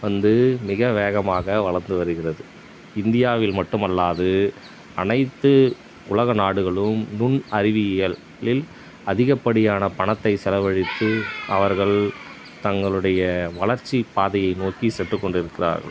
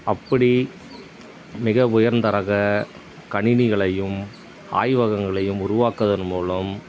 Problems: background sounds at intervals